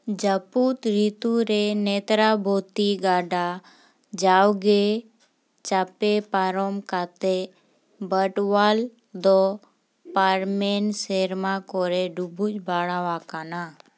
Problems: none marked